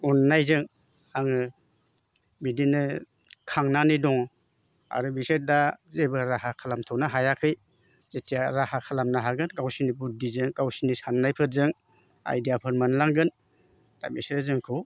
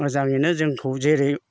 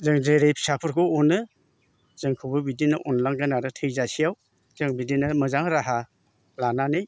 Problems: constant background noise